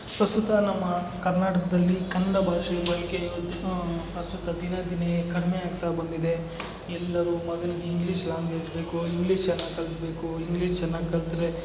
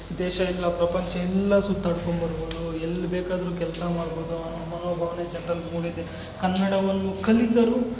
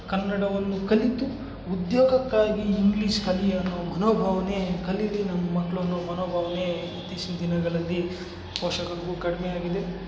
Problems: background sounds at intervals